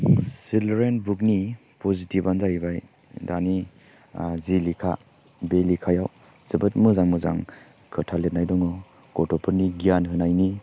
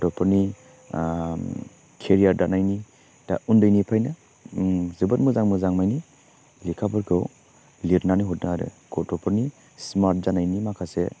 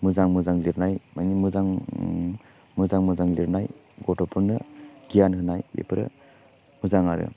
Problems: constant background noise